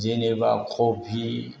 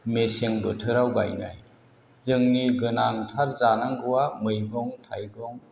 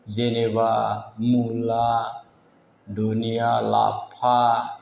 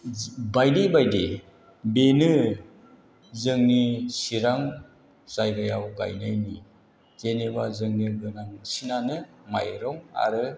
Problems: constant background noise